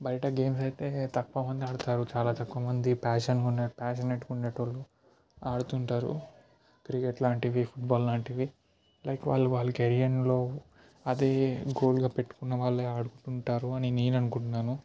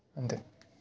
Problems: background sounds at intervals